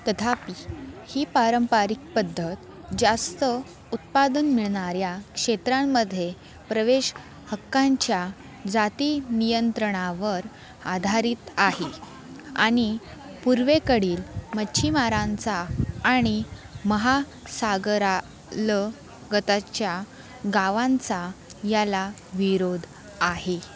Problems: constant background noise, continuous background conversations